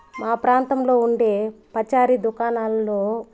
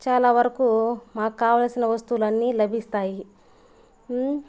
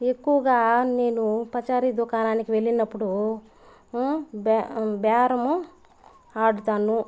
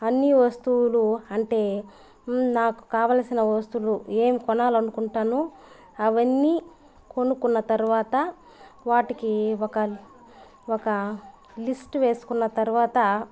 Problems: constant background noise